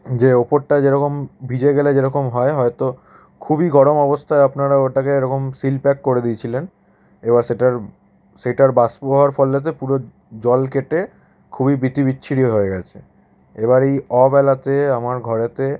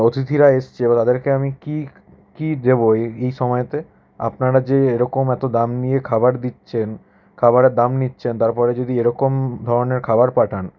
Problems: none marked